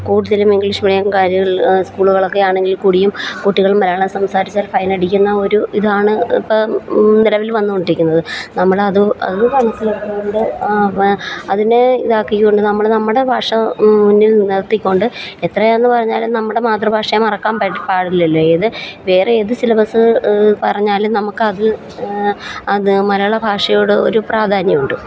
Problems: constant background noise